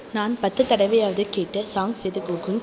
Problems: constant background noise